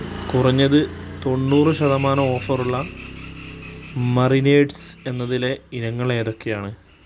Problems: constant background noise